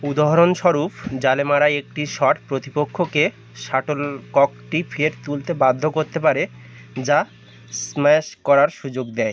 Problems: constant background noise